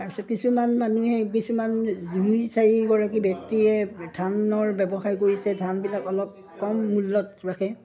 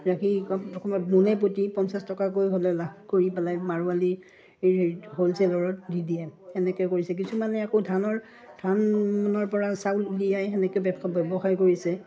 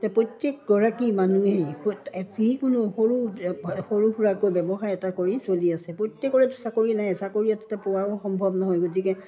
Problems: background sounds at intervals